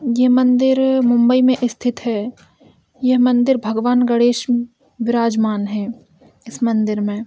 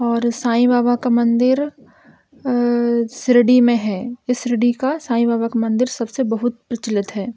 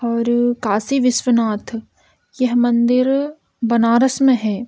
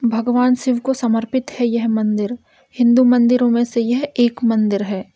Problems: none marked